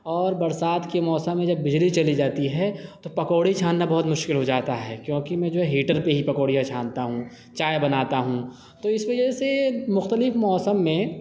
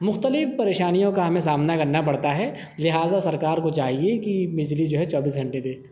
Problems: none marked